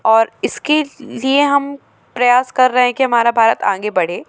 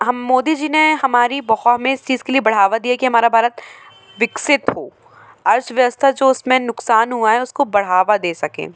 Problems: constant background noise